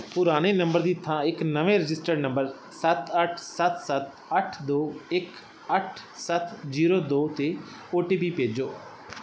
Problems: none marked